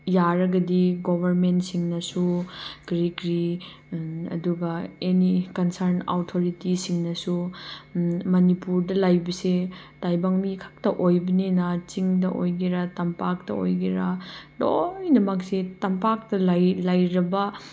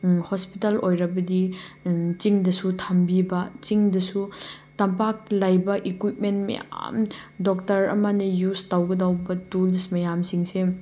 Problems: none marked